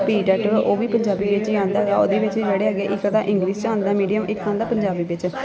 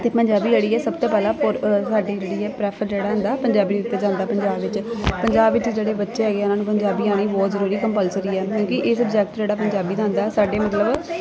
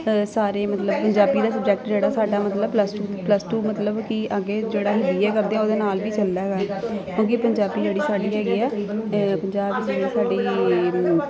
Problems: constant background noise, continuous background conversations